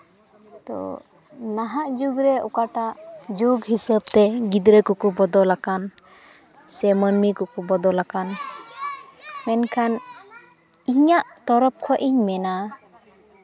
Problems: background sounds at intervals, continuous background conversations